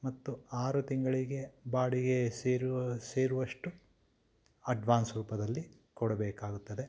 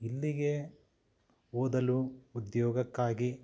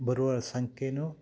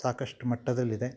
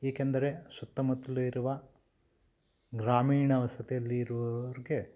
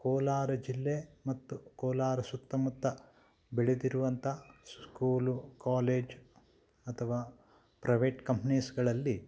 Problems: none marked